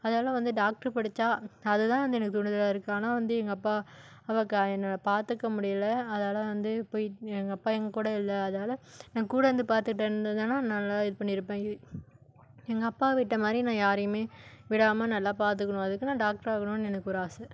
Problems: none marked